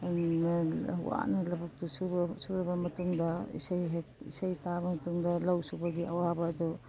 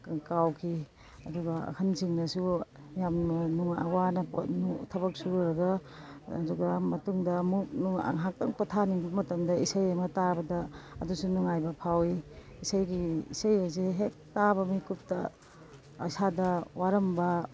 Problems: background sounds at intervals